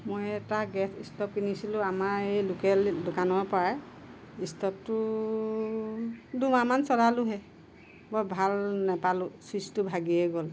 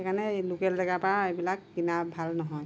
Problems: none marked